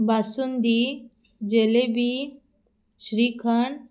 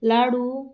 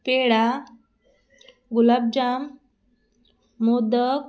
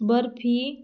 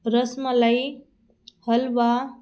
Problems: background sounds at intervals